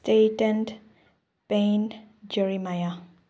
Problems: low volume